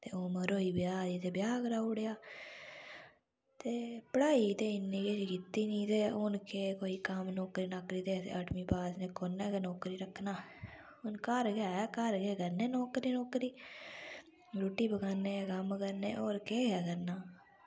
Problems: low volume